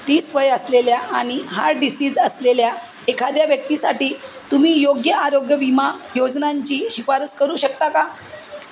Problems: constant background noise, background conversations at intervals